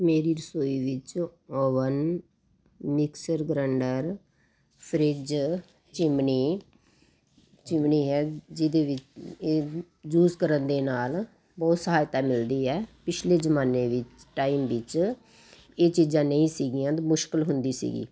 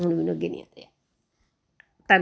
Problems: background conversations at intervals